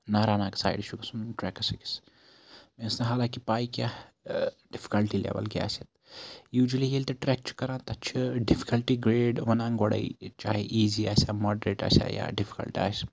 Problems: none marked